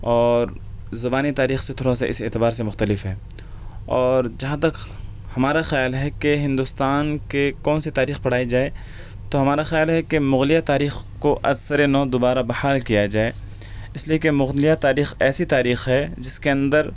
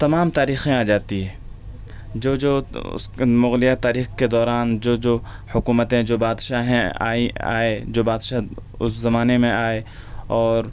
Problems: none marked